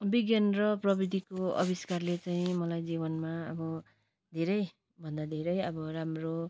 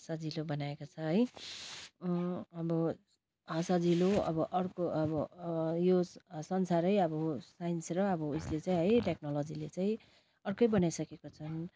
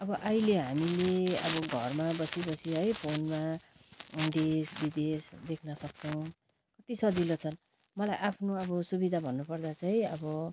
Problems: none marked